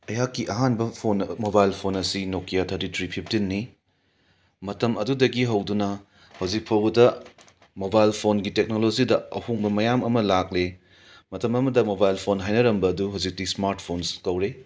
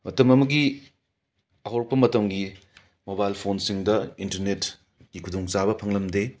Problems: background sounds at intervals